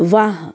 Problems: constant background noise